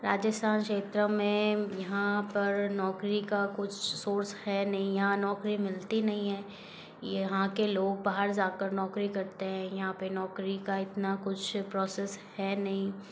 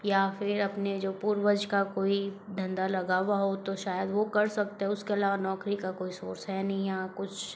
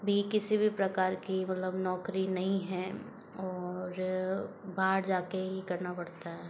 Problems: background sounds at intervals